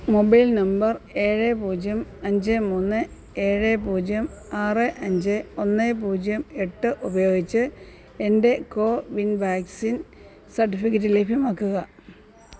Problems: none marked